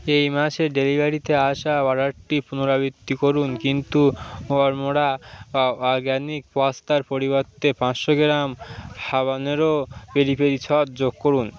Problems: continuous background conversations